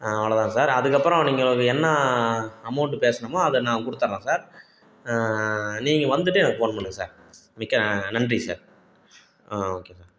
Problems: none marked